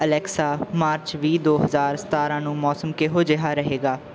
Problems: background sounds at intervals